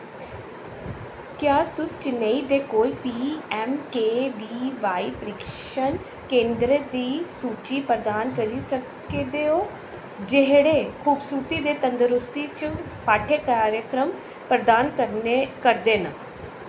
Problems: constant background noise